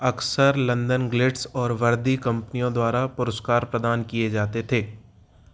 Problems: background sounds at intervals